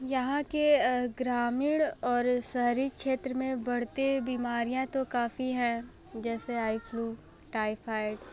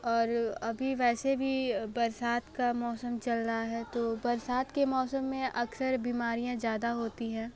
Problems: background conversations at intervals